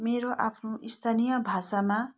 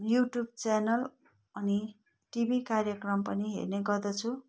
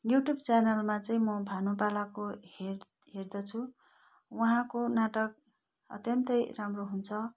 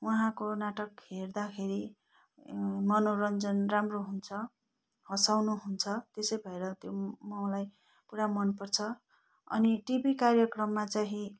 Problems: none marked